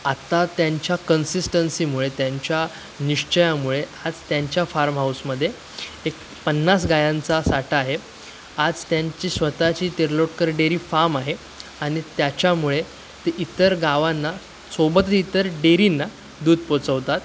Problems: constant background noise, continuous background conversations